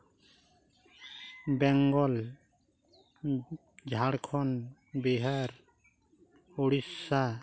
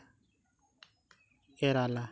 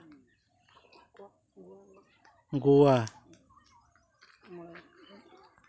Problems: constant background noise, continuous background conversations